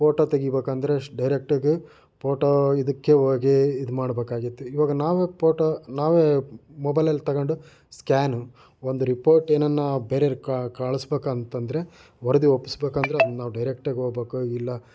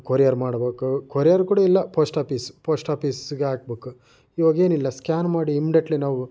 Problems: background sounds at intervals